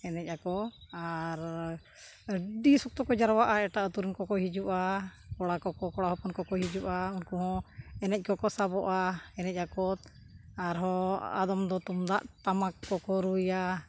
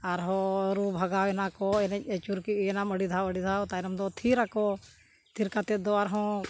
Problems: none marked